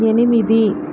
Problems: constant background noise